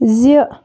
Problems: constant background noise